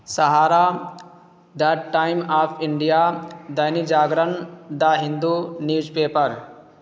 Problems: constant background noise